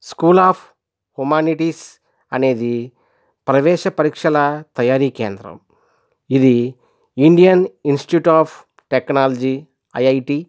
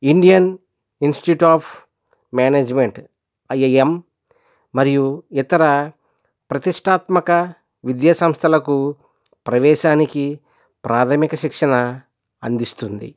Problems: none marked